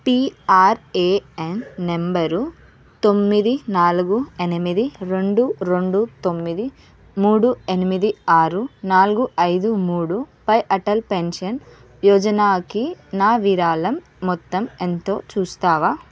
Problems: constant background noise